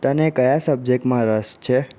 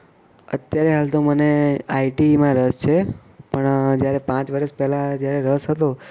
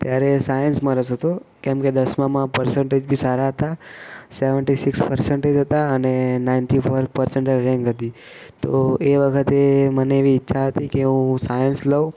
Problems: background sounds at intervals